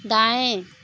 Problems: none marked